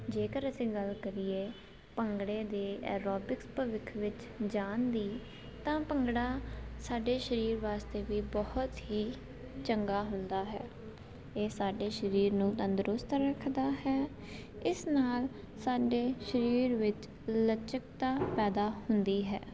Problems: constant background noise